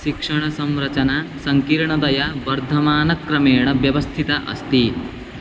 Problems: none marked